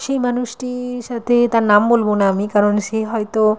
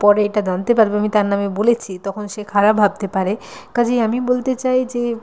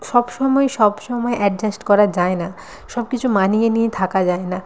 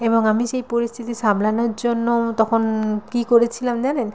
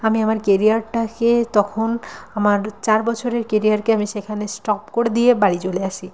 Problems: none marked